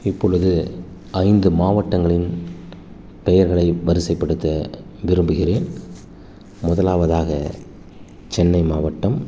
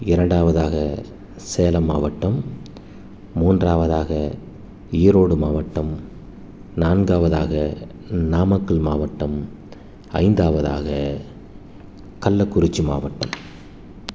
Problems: none marked